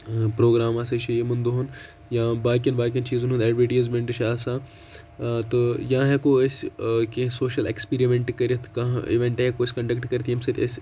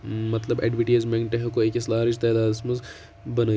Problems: constant background noise